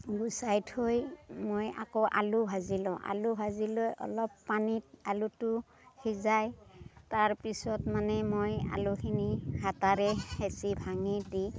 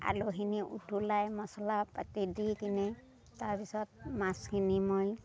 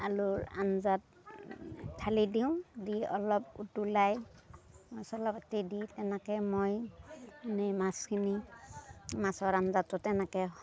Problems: constant background noise